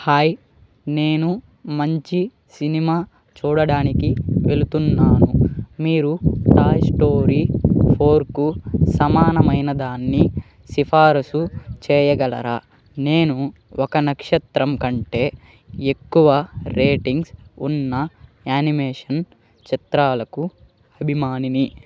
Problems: background sounds at intervals